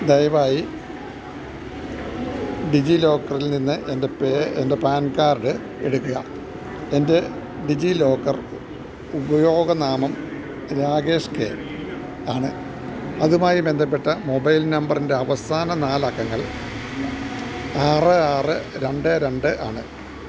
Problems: none marked